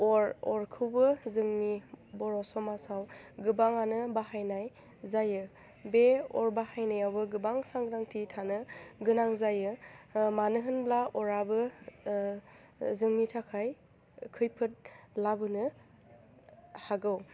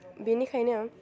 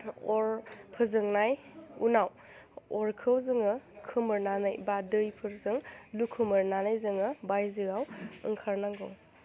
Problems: low volume